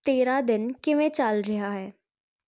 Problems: none marked